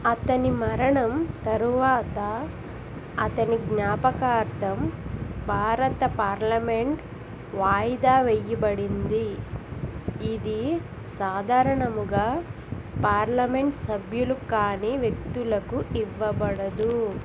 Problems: constant background noise